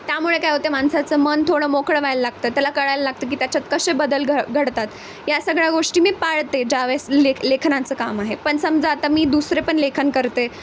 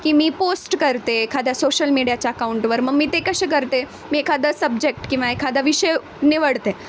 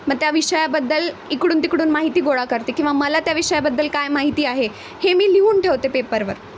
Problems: constant background noise